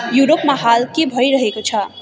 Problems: continuous background conversations